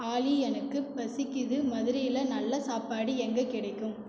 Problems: echo